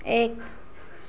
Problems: none marked